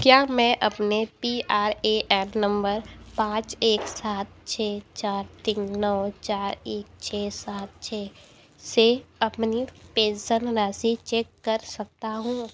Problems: none marked